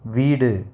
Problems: none marked